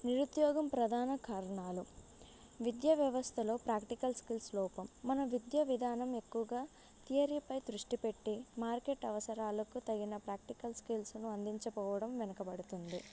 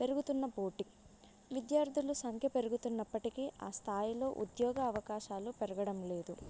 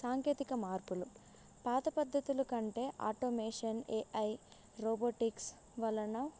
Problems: none marked